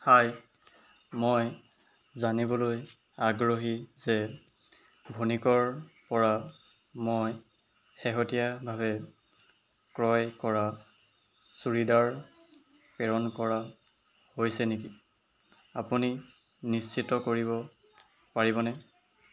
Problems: background sounds at intervals